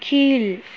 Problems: constant background noise